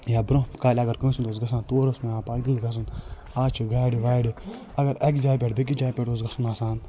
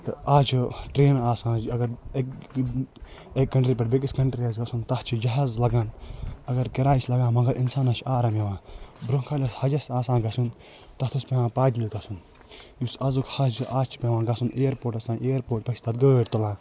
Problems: constant background noise